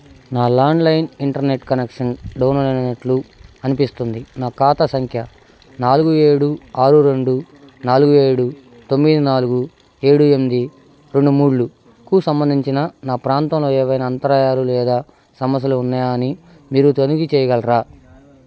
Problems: constant background noise